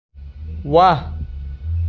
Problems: none marked